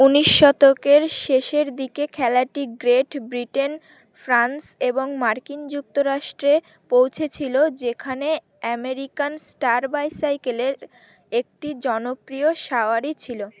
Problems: none marked